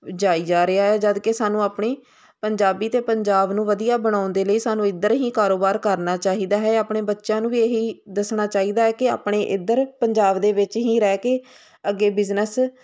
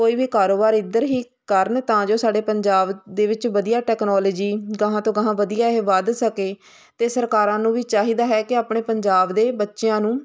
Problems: constant background noise